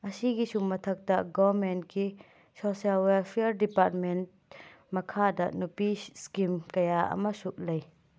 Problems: background sounds at intervals